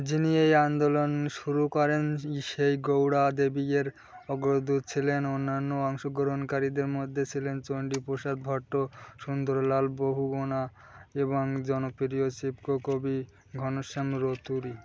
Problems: constant background noise